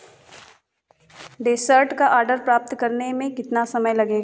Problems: constant background noise